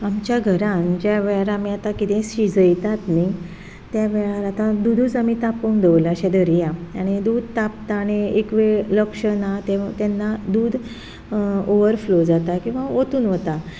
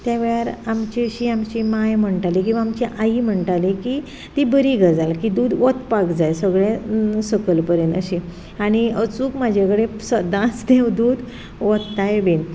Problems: background sounds at intervals